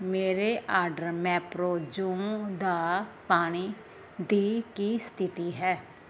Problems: none marked